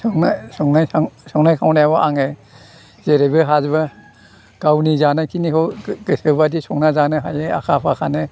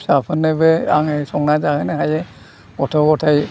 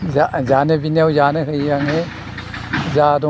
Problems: constant background noise